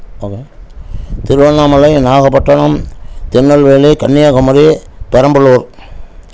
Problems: none marked